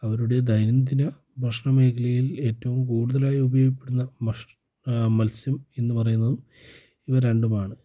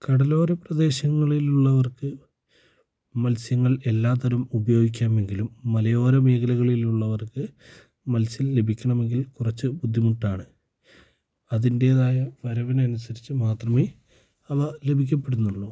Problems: low volume